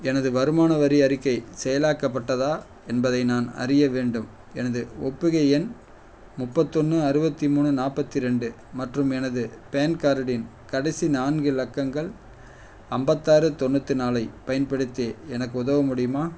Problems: none marked